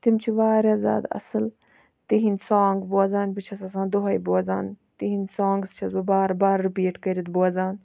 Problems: background sounds at intervals